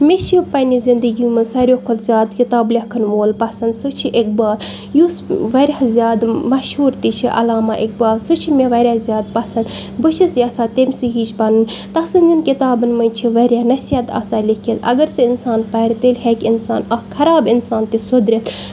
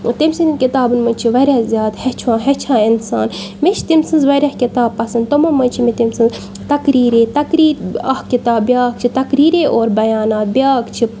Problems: none marked